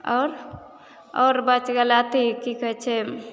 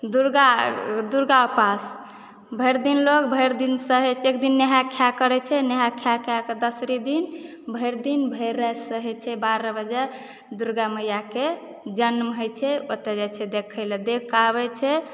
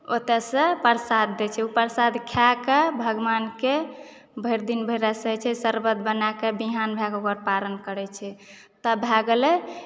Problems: background sounds at intervals